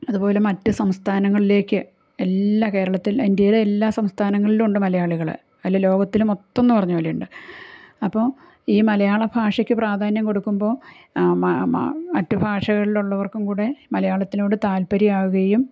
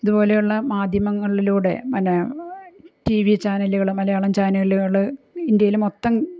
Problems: none marked